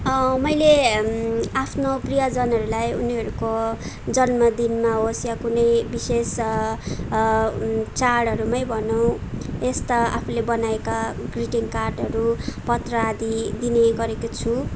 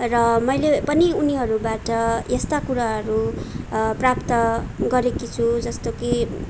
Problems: background sounds at intervals